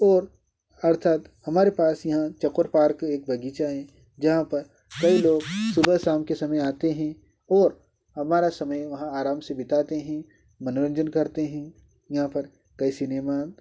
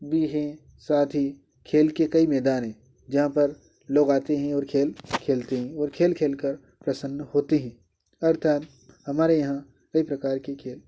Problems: none marked